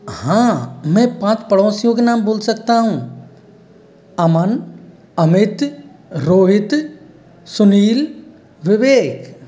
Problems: none marked